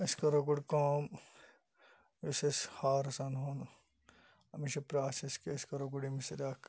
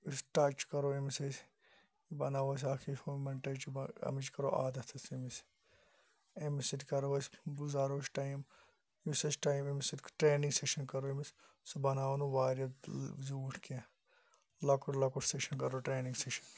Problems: background sounds at intervals